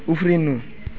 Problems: background sounds at intervals